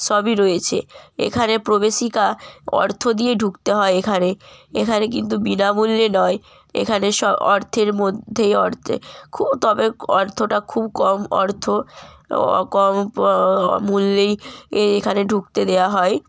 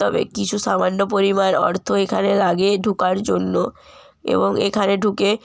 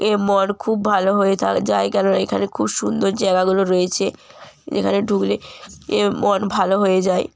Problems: none marked